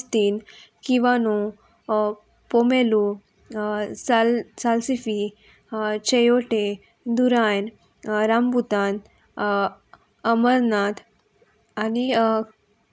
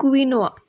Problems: constant background noise, background conversations at intervals